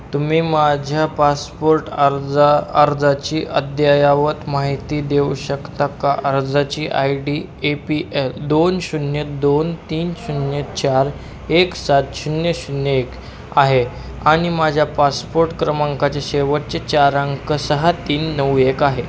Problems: constant background noise, background conversations at intervals